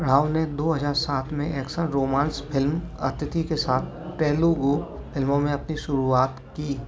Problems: constant background noise, background conversations at intervals